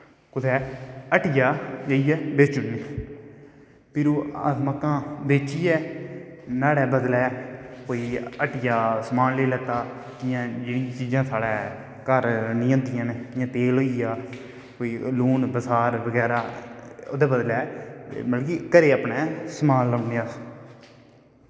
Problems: background sounds at intervals, echo